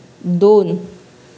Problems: none marked